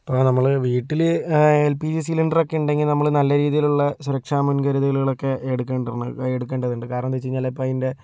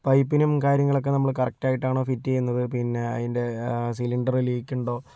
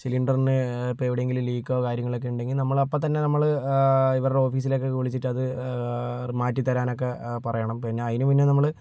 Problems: none marked